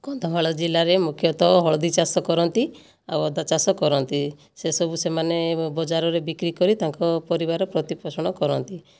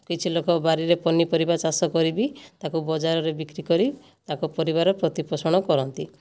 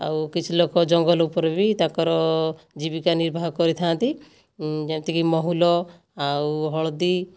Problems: none marked